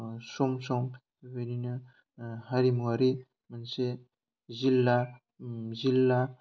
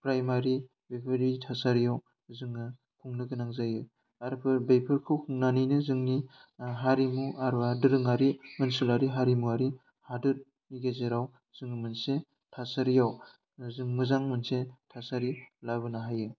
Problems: none marked